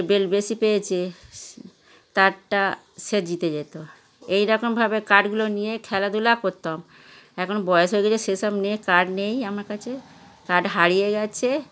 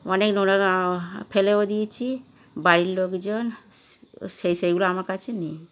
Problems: none marked